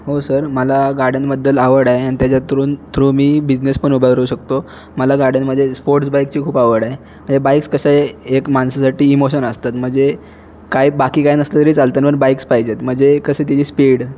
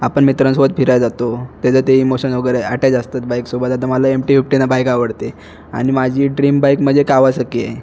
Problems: constant background noise, background conversations at intervals